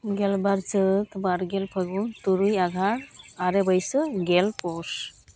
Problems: constant background noise